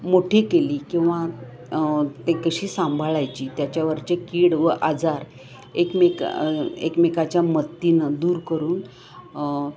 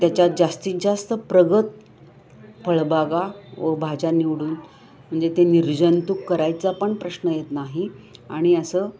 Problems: background sounds at intervals, background conversations at intervals